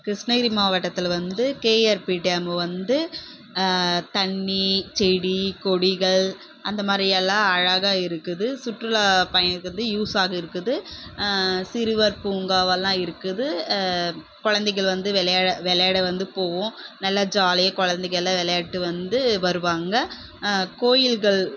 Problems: none marked